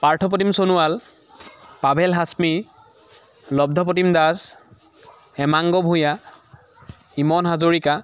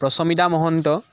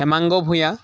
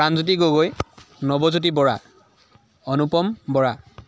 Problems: continuous background conversations